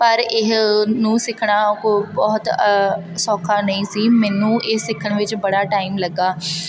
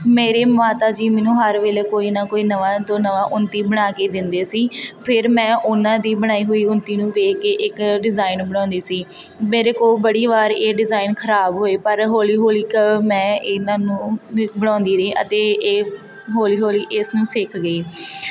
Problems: constant background noise